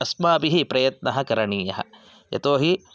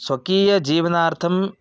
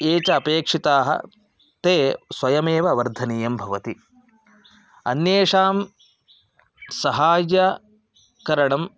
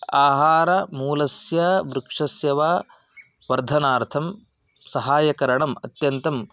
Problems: background sounds at intervals